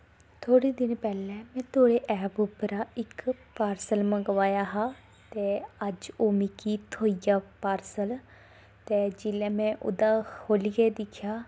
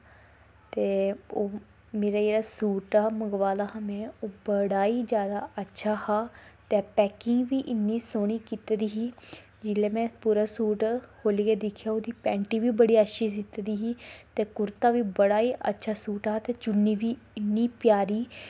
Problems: none marked